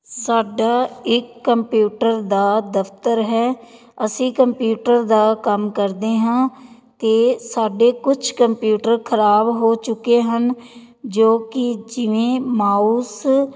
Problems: background conversations at intervals